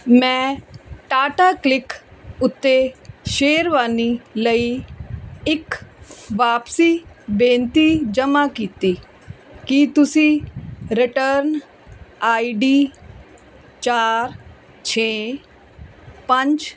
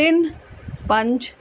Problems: none marked